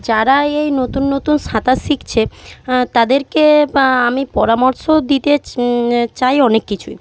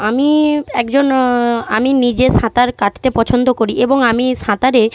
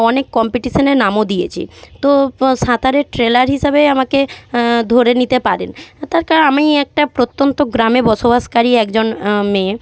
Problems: none marked